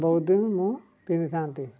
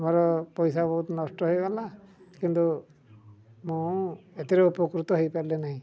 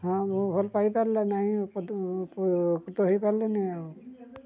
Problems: low volume